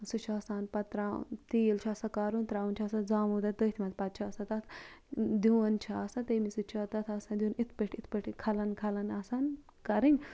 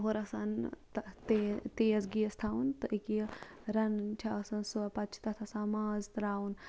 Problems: background sounds at intervals, low volume